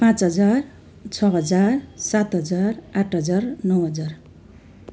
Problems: constant background noise